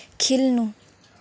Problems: background sounds at intervals